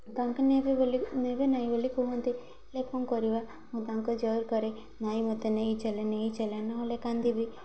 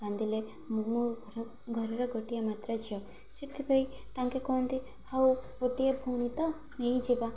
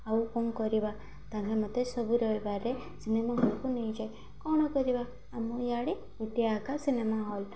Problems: constant background noise